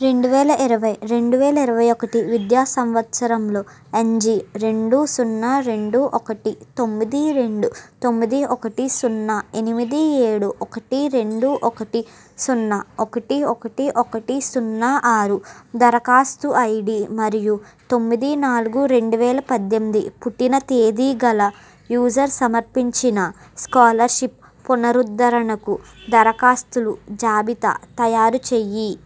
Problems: background sounds at intervals